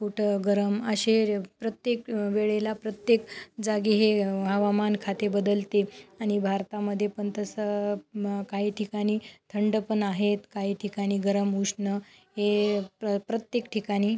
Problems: background sounds at intervals, background conversations at intervals